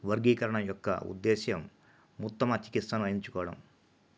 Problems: low volume